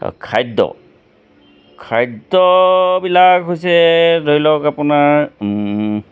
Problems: constant background noise